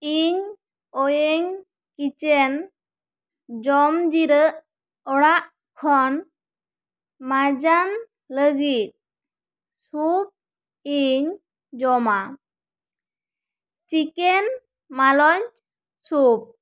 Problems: none marked